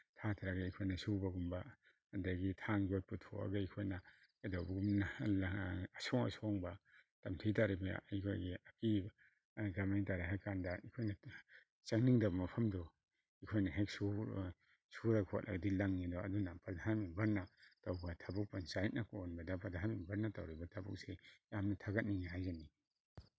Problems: none marked